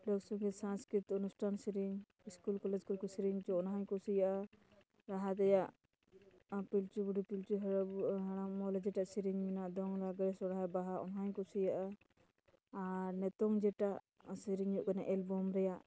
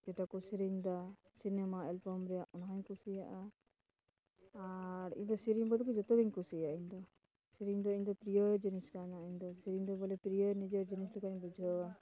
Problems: background conversations at intervals, low volume